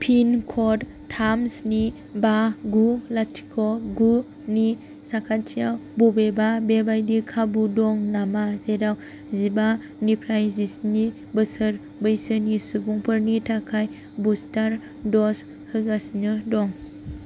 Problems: constant background noise